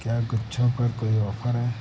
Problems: constant background noise